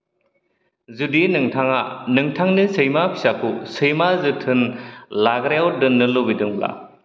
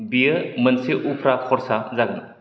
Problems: none marked